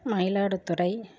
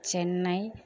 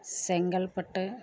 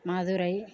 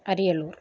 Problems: none marked